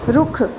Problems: background sounds at intervals